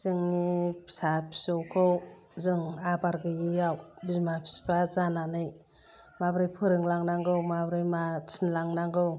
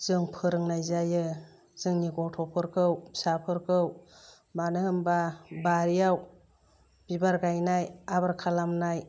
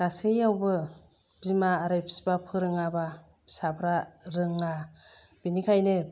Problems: low volume